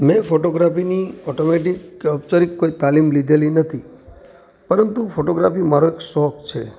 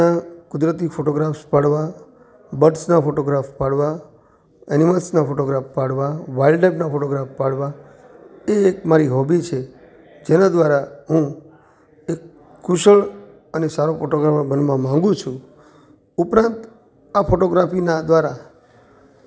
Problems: constant background noise